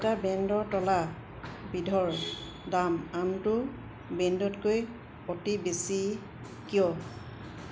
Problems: constant background noise